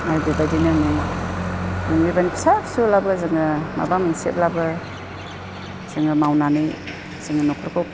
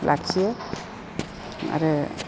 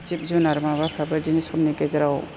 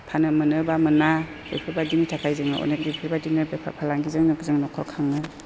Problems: constant background noise